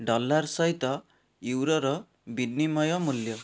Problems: none marked